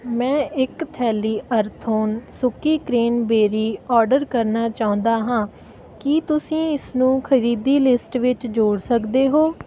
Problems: none marked